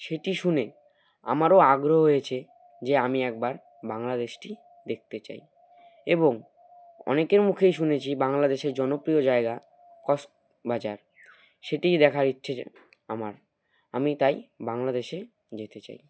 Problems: none marked